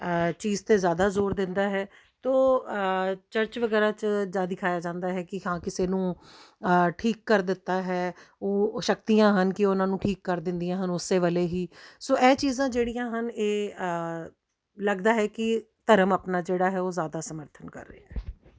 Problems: background sounds at intervals